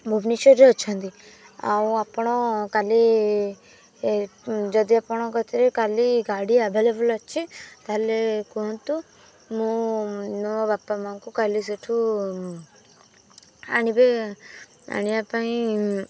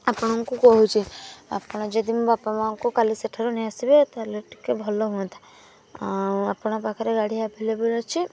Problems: background sounds at intervals